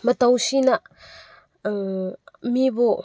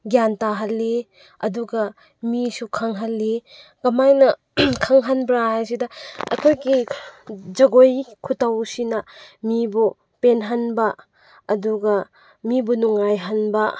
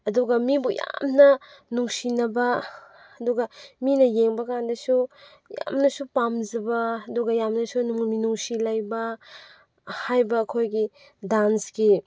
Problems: none marked